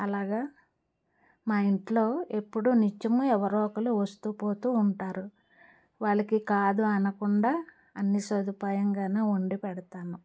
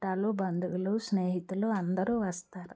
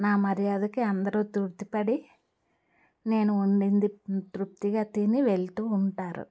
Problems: none marked